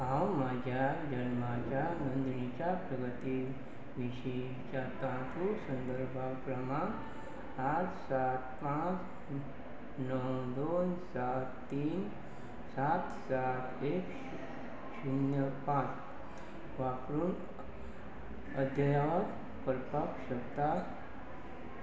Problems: constant background noise